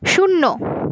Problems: background sounds at intervals